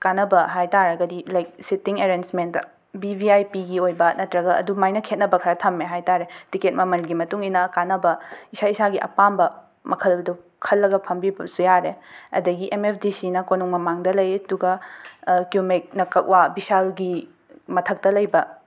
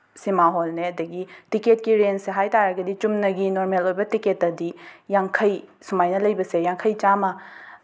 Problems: background sounds at intervals